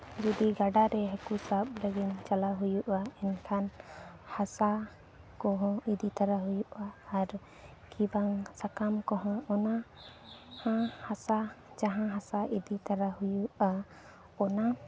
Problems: low volume